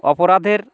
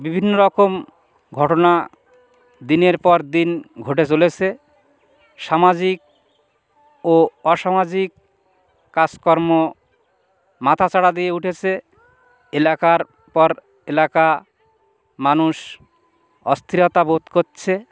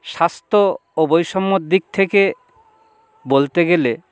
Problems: constant background noise